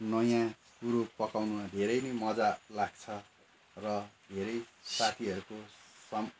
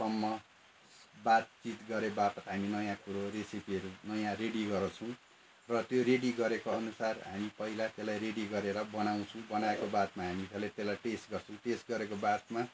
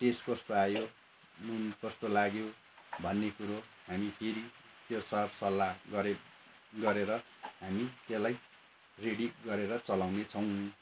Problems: constant background noise